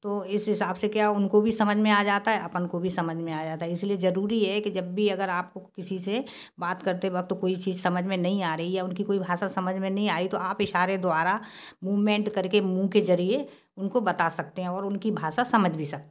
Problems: none marked